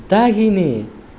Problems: background sounds at intervals